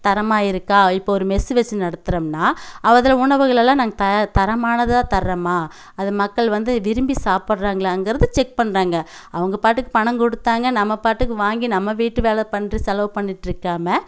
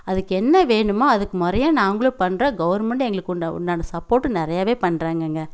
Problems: none marked